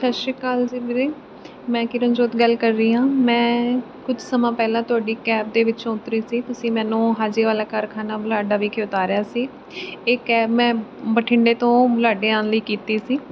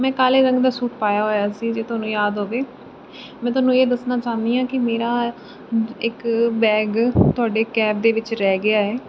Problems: constant background noise